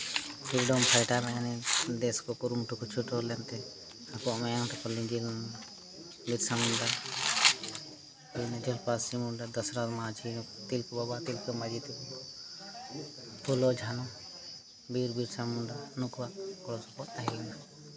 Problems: constant background noise